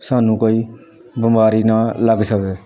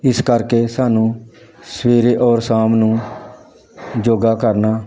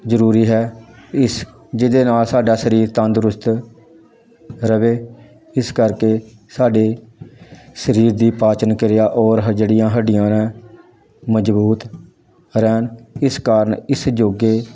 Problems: none marked